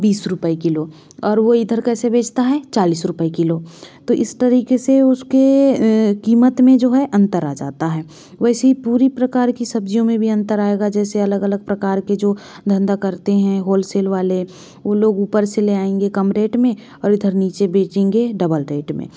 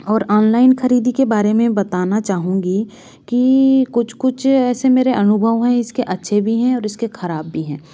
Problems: none marked